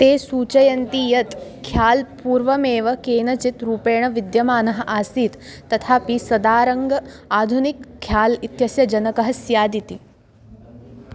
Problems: none marked